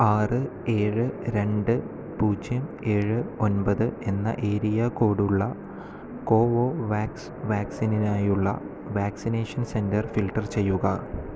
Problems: none marked